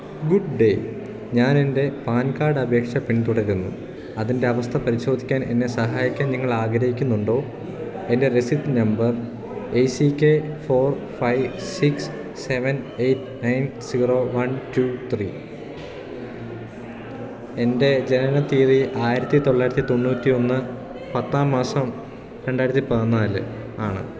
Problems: background sounds at intervals